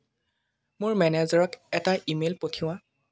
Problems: none marked